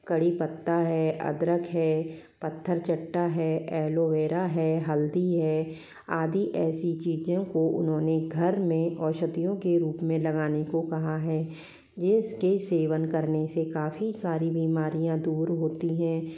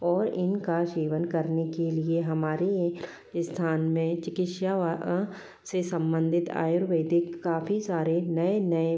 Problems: continuous background conversations